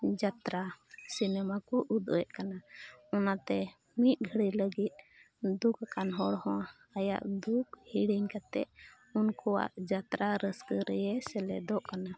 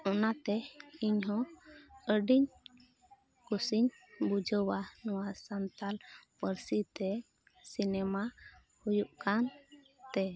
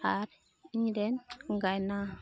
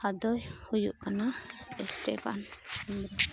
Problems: constant background noise, low volume